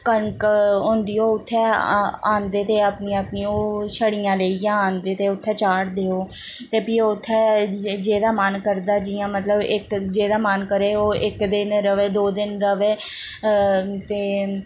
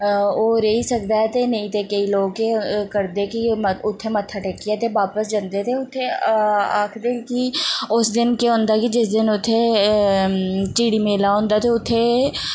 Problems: constant background noise